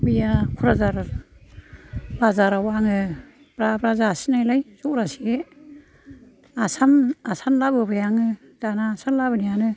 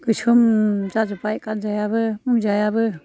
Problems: background sounds at intervals, background conversations at intervals